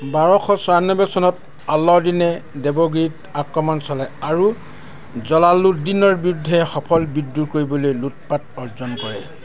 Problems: background sounds at intervals